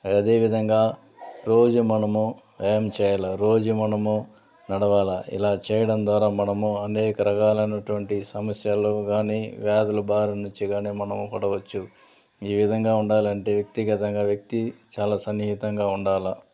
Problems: constant background noise, background conversations at intervals